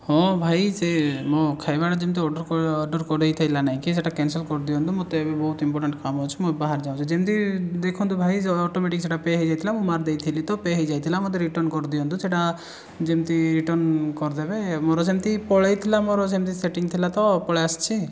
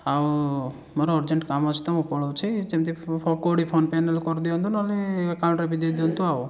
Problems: none marked